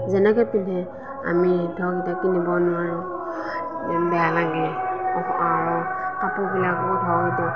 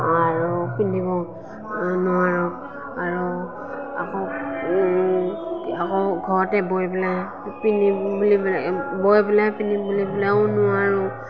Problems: none marked